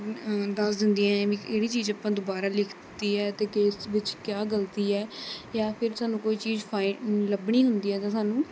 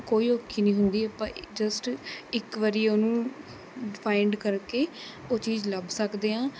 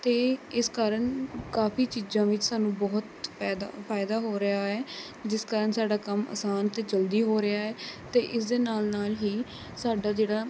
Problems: constant background noise, background conversations at intervals